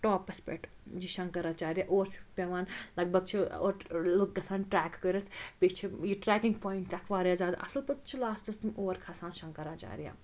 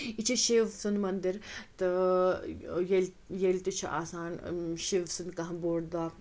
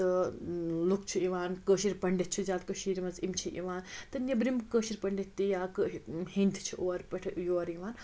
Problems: constant background noise